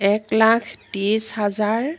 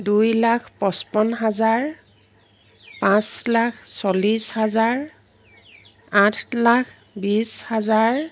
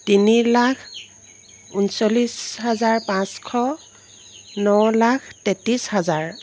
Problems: constant background noise